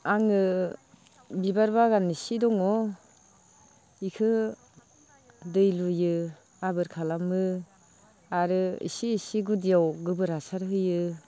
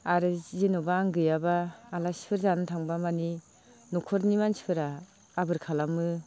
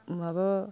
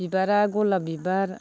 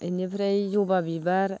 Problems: low volume